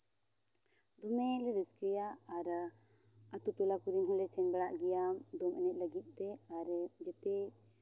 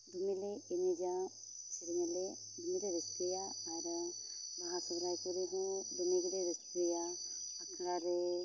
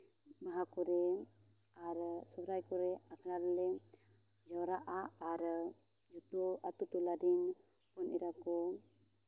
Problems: background sounds at intervals